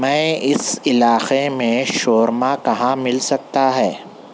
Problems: constant background noise